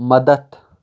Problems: none marked